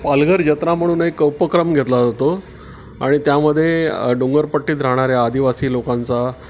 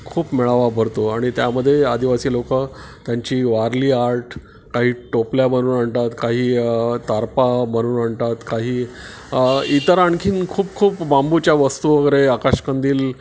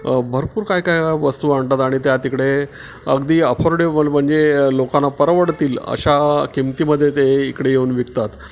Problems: constant background noise